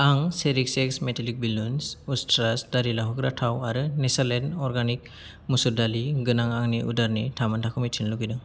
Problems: none marked